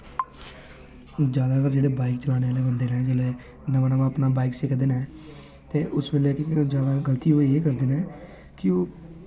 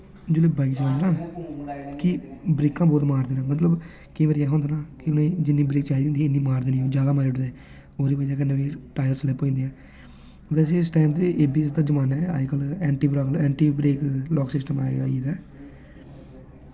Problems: constant background noise